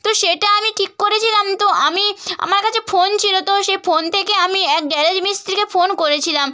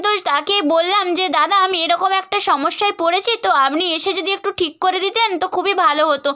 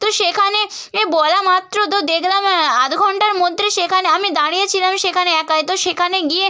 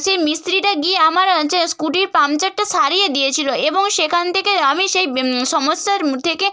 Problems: none marked